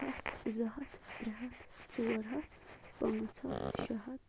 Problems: constant background noise, low volume